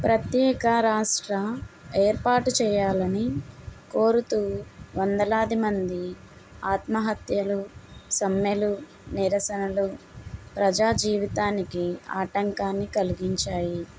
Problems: constant background noise